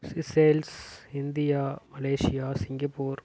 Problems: none marked